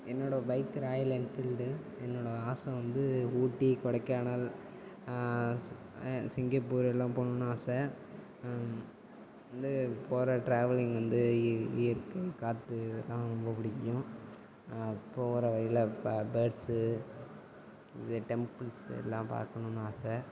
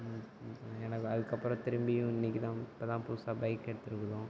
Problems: background sounds at intervals, background conversations at intervals